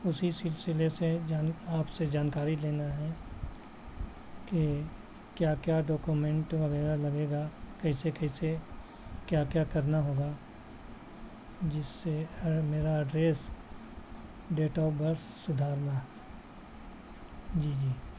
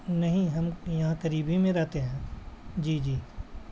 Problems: constant background noise